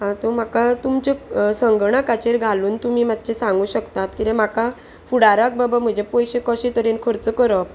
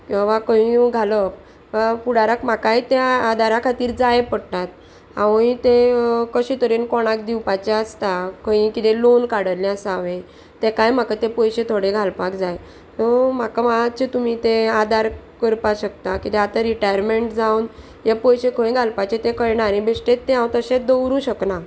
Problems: none marked